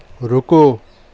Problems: none marked